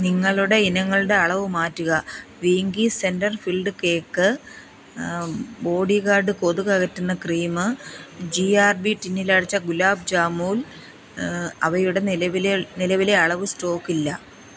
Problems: constant background noise